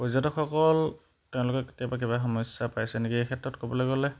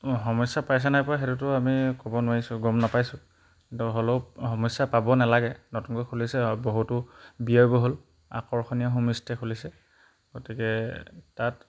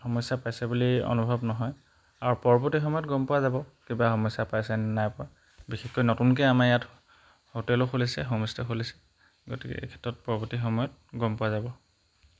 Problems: background sounds at intervals